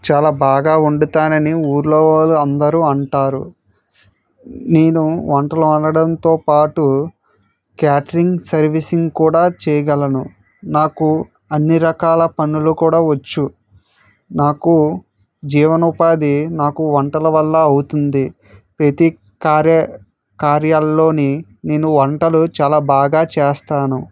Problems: none marked